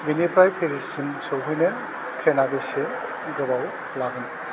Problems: constant background noise